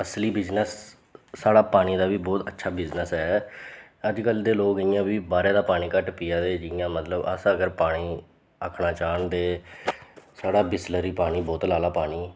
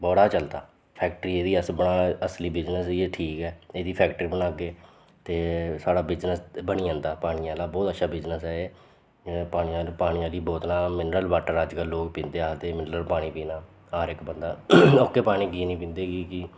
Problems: none marked